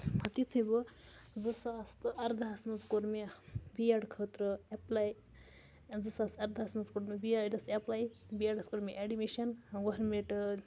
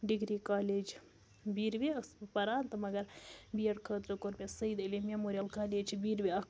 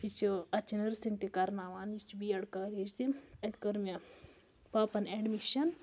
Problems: low volume